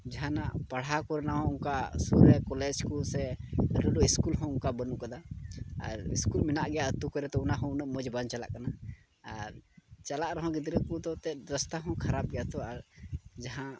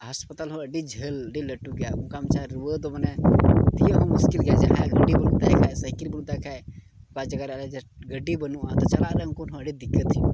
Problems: constant background noise, low volume